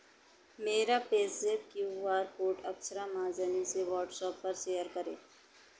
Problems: constant background noise